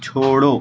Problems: constant background noise, background conversations at intervals